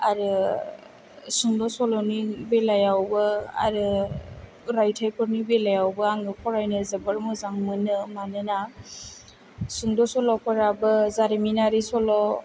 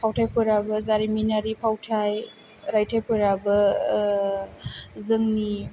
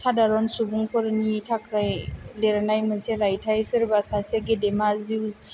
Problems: low volume